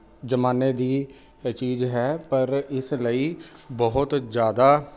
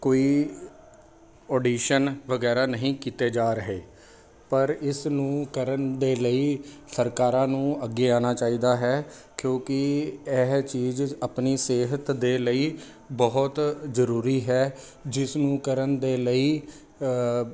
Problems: none marked